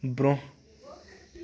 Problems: none marked